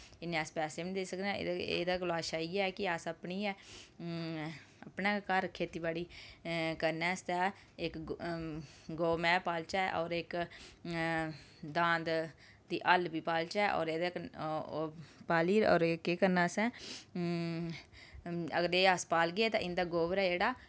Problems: background sounds at intervals